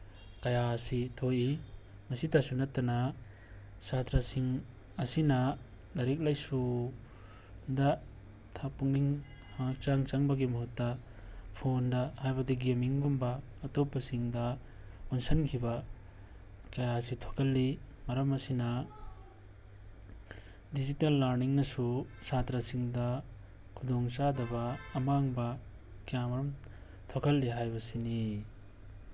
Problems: background sounds at intervals